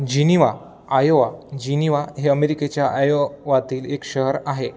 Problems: background sounds at intervals